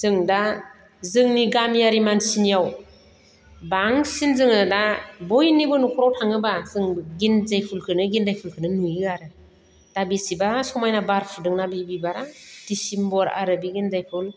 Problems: none marked